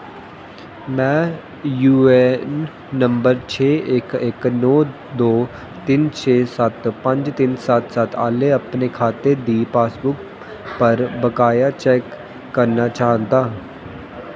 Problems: constant background noise, echo